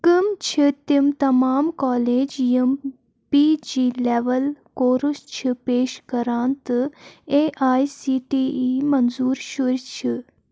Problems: constant background noise